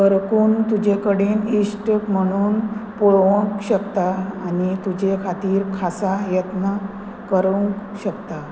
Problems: none marked